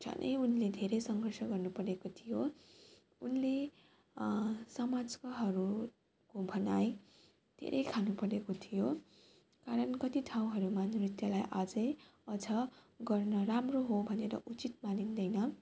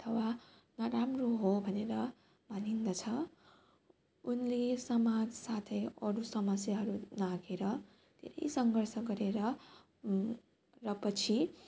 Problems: background sounds at intervals